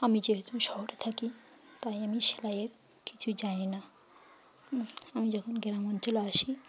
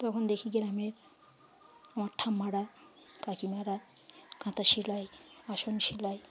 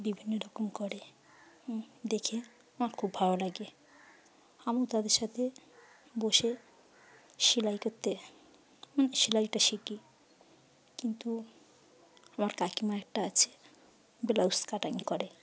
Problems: background sounds at intervals